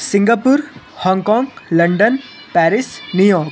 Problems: none marked